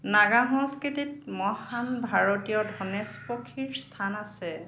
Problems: none marked